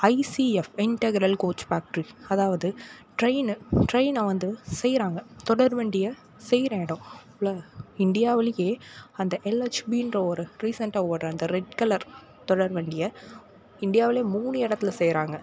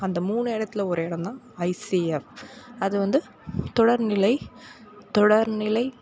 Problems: background conversations at intervals